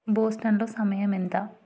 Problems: none marked